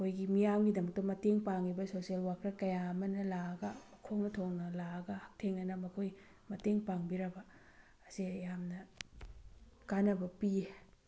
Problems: none marked